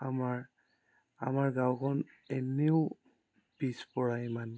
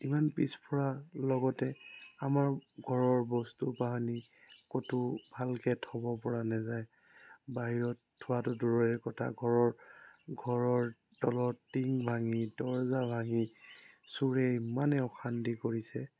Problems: background sounds at intervals